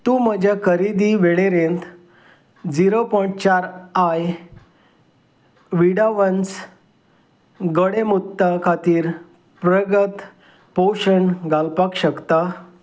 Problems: none marked